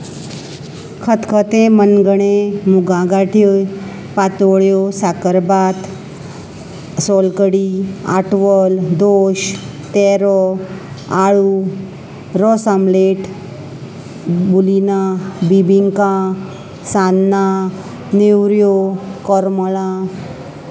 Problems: constant background noise, background conversations at intervals